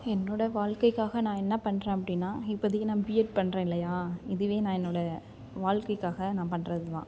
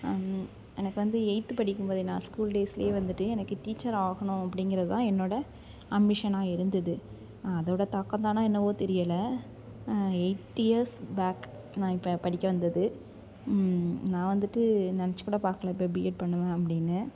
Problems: constant background noise, background conversations at intervals